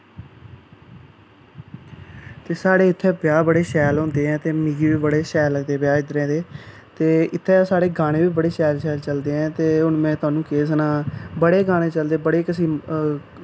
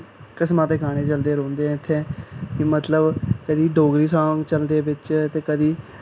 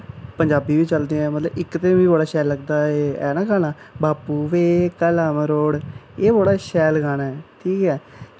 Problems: none marked